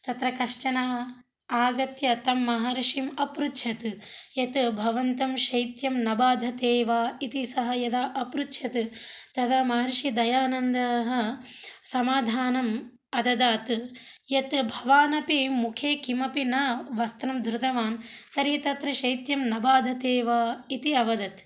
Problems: none marked